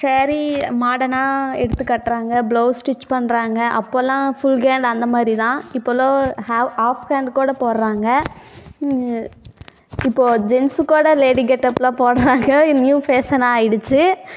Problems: background sounds at intervals, echo